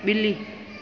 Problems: constant background noise, echo